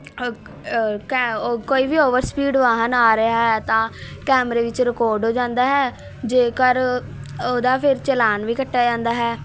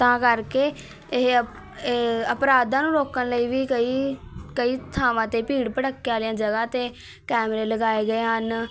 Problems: constant background noise, continuous background conversations